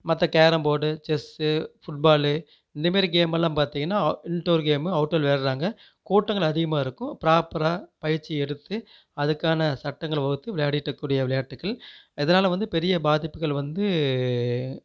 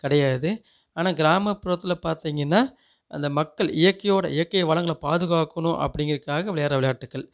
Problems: none marked